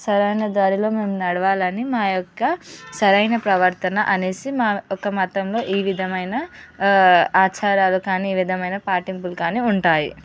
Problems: background sounds at intervals, background conversations at intervals